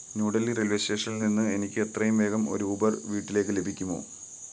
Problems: constant background noise